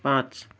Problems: background sounds at intervals